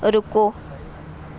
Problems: constant background noise